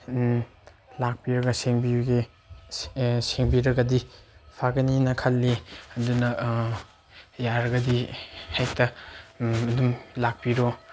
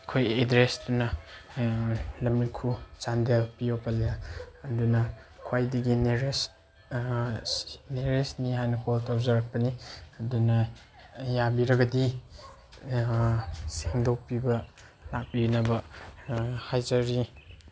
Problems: constant background noise